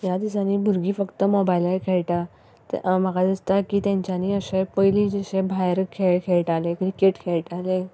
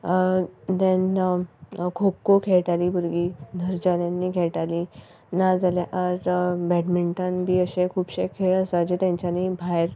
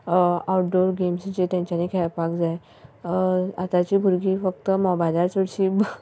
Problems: background sounds at intervals